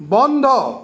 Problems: constant background noise